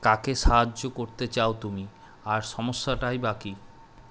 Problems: none marked